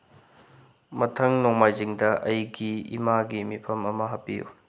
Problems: low volume